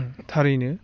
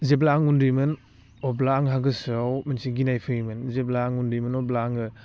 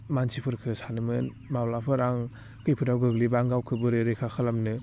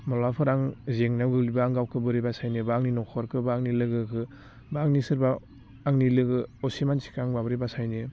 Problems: constant background noise